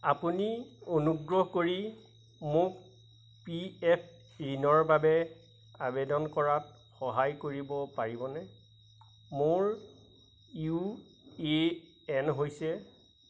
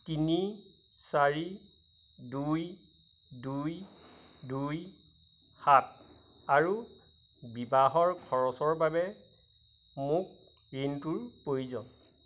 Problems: none marked